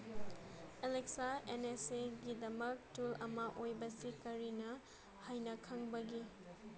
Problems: low volume